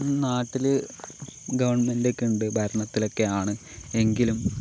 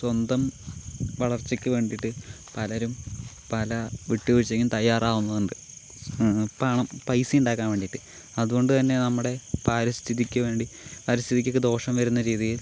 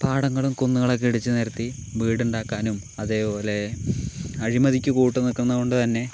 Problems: none marked